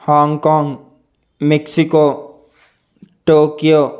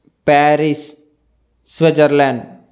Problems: constant background noise